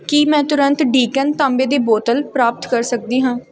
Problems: background sounds at intervals